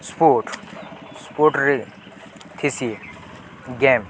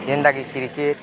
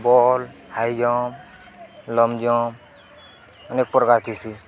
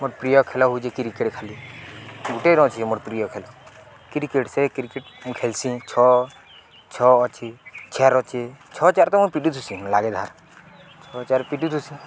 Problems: none marked